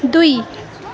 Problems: continuous background conversations